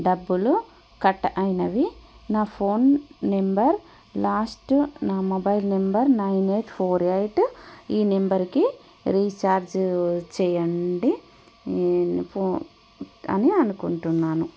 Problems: none marked